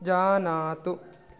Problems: none marked